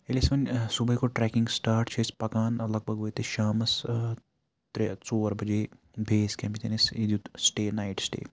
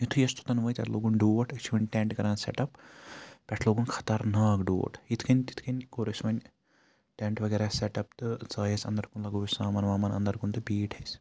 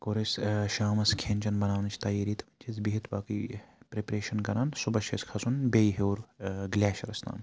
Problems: background sounds at intervals